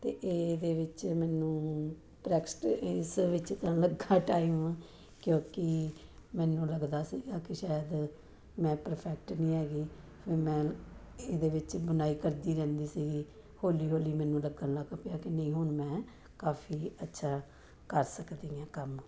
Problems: none marked